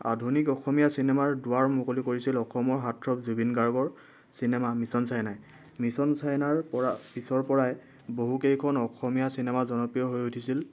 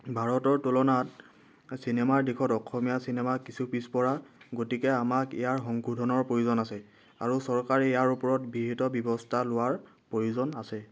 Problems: background sounds at intervals